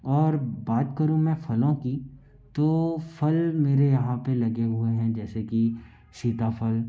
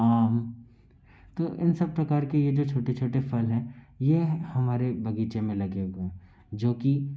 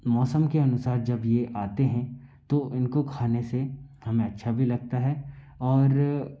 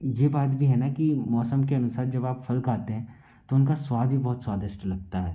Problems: low volume